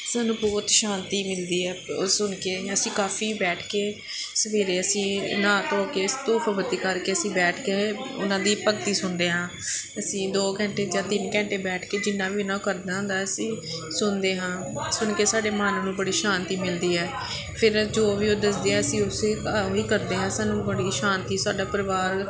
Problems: none marked